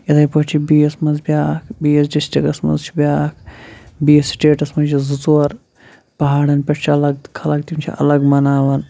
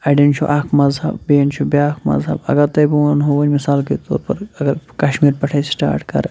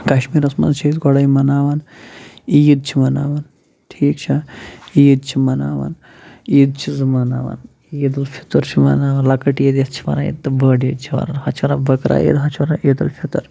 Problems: none marked